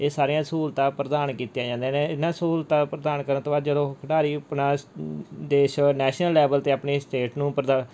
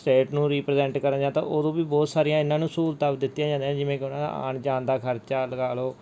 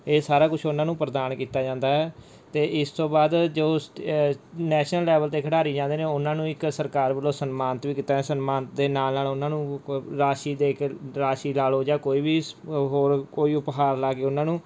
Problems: background sounds at intervals